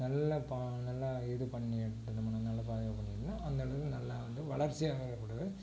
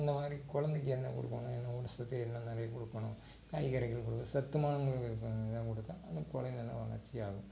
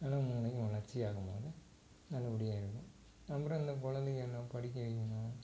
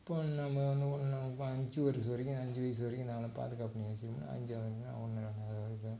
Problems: constant background noise, low volume